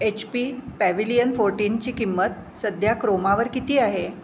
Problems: constant background noise